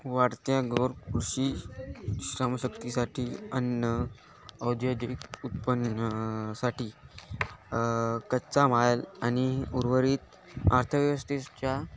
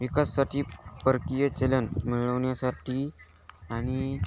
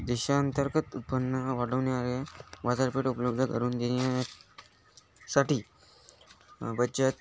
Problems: constant background noise, background conversations at intervals